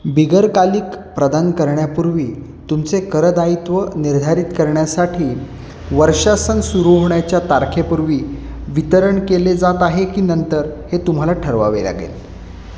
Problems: constant background noise